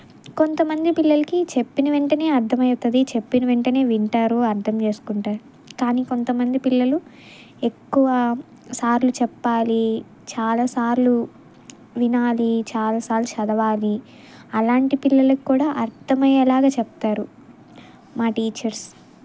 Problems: background sounds at intervals